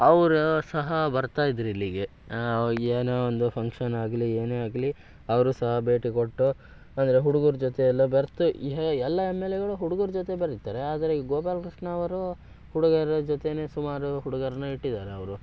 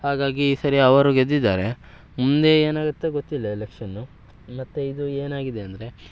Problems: none marked